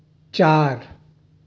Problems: none marked